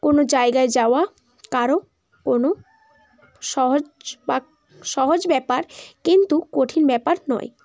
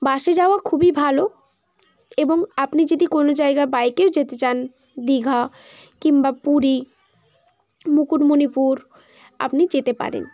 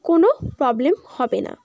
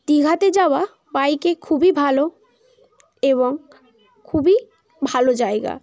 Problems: constant background noise, continuous background conversations